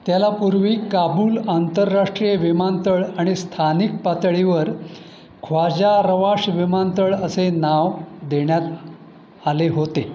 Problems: constant background noise